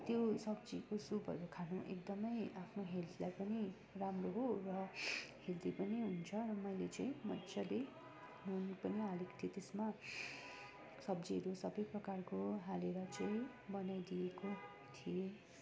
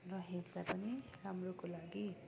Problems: continuous background conversations